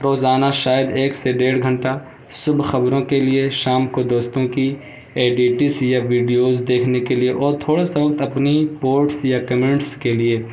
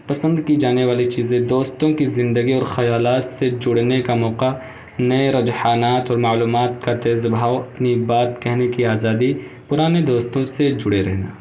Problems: constant background noise